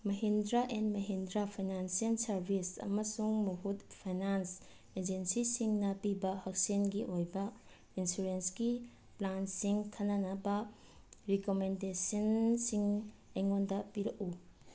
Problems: background sounds at intervals